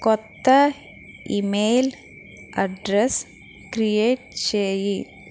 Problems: constant background noise